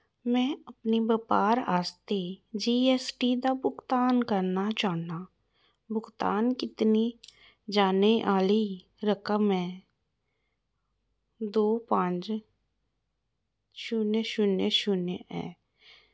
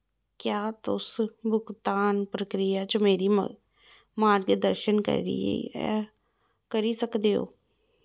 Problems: none marked